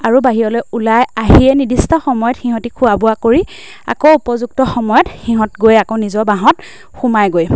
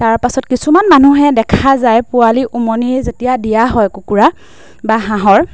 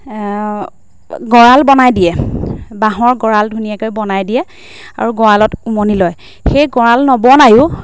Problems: constant background noise